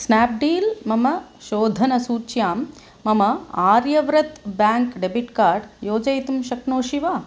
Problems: none marked